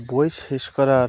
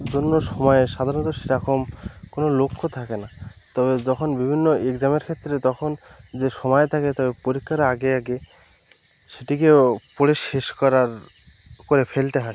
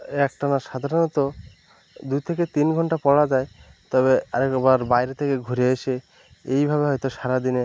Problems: constant background noise